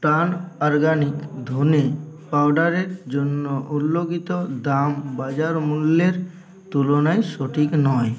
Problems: constant background noise, continuous background conversations